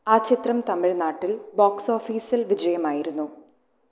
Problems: low volume